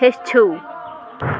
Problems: constant background noise